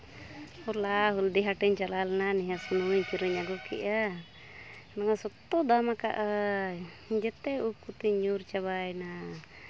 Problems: background conversations at intervals